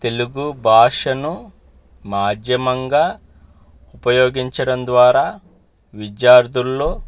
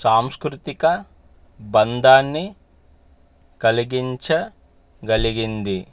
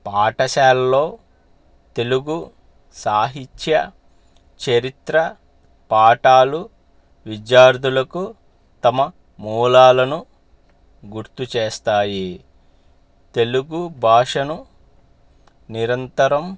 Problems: none marked